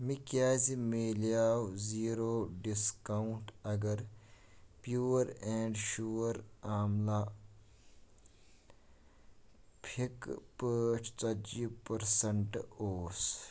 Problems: background sounds at intervals